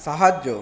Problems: constant background noise